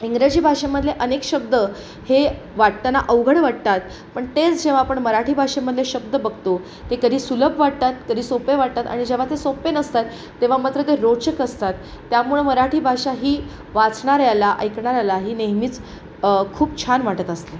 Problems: constant background noise